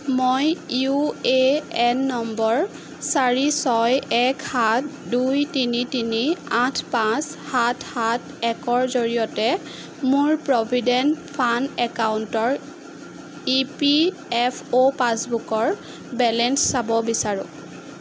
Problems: constant background noise